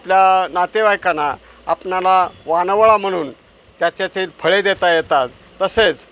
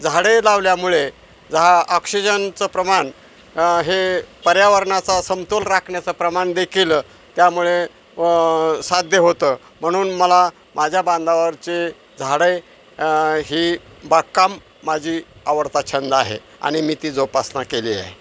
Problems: none marked